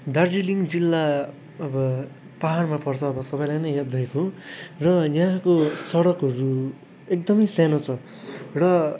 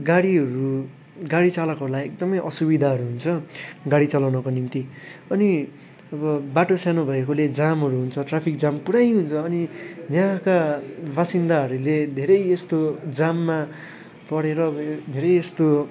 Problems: none marked